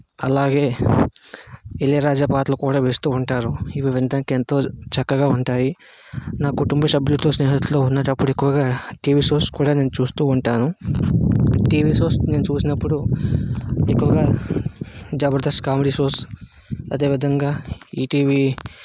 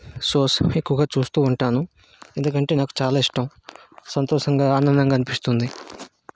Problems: constant background noise